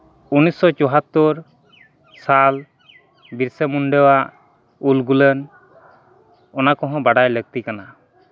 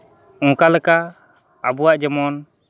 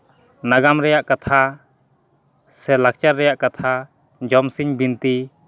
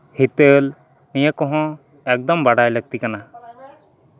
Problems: constant background noise, background conversations at intervals